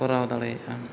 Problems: background conversations at intervals